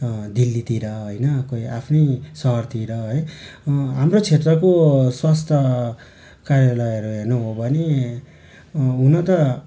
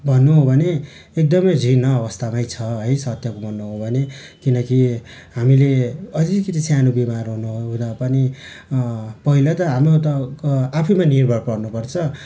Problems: none marked